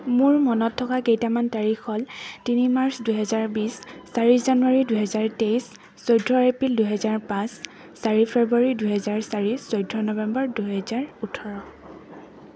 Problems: constant background noise